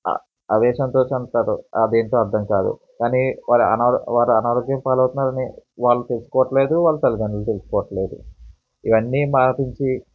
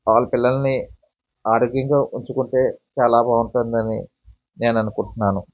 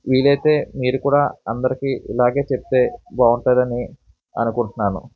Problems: background sounds at intervals, background conversations at intervals